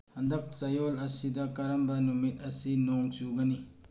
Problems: low volume